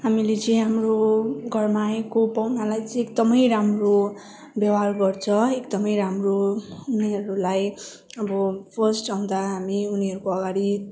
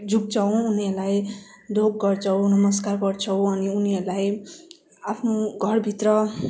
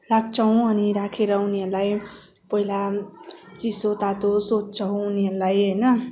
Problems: background sounds at intervals